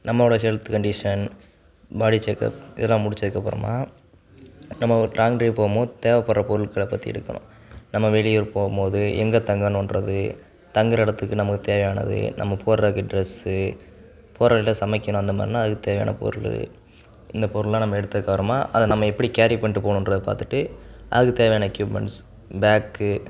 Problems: none marked